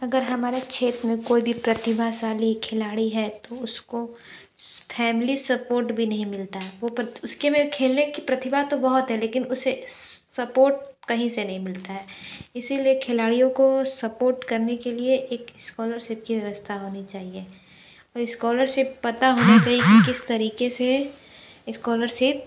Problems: none marked